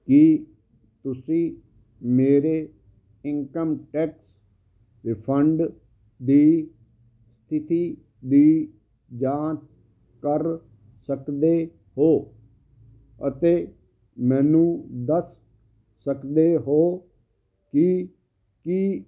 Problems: constant background noise